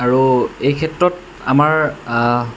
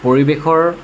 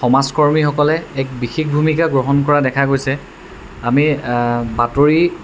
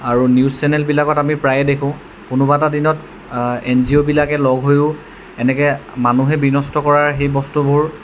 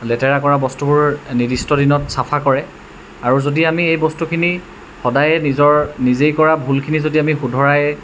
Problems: constant background noise